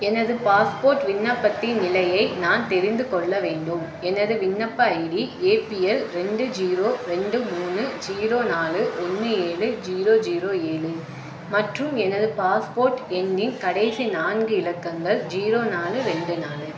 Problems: none marked